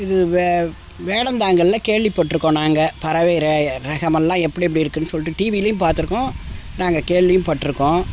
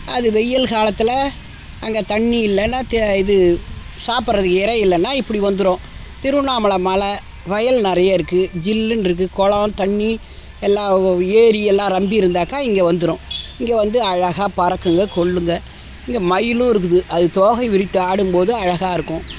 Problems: constant background noise